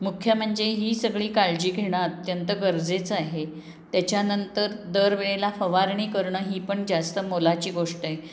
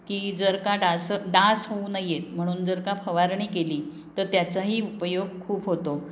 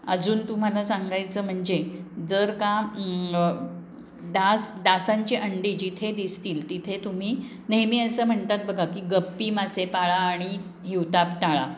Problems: none marked